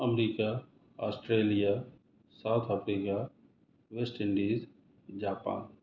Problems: none marked